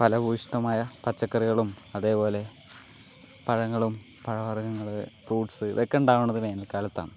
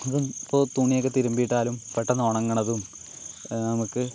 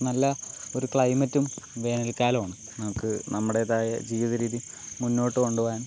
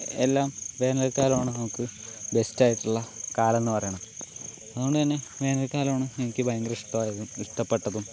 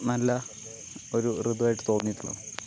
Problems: constant background noise